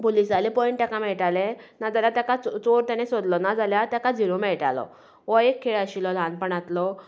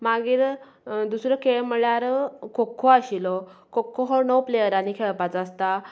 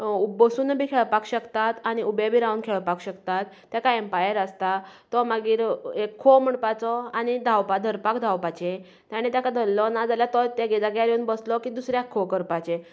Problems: none marked